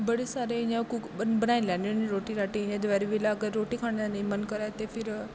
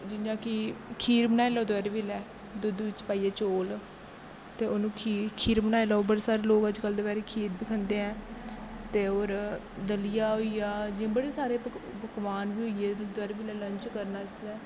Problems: constant background noise